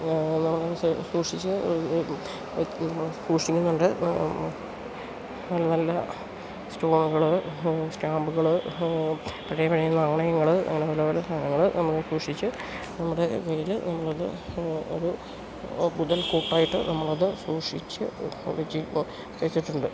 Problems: constant background noise